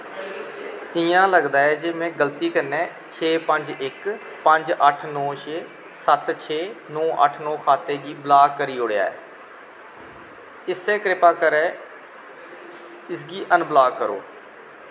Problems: constant background noise, echo